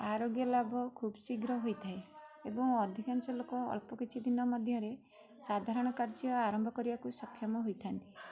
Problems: background sounds at intervals, background conversations at intervals